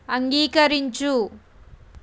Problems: constant background noise